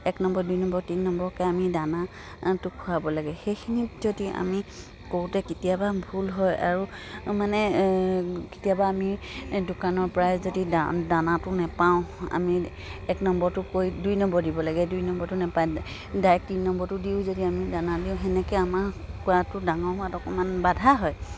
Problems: none marked